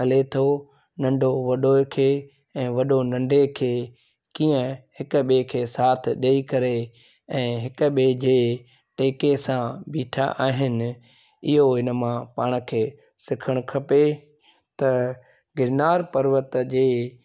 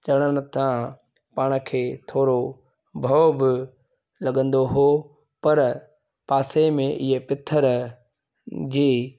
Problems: none marked